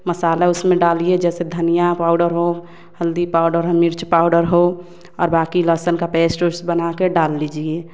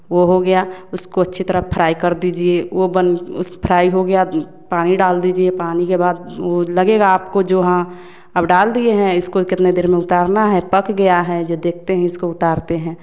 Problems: none marked